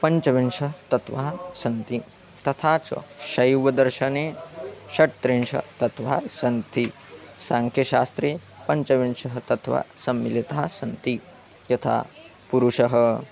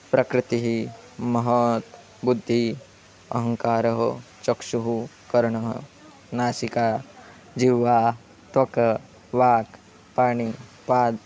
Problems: constant background noise